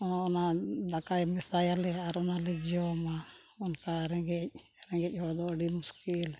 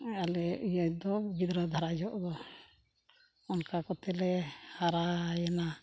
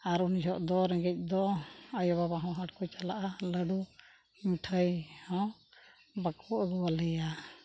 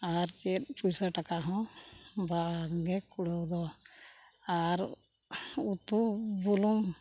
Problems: background sounds at intervals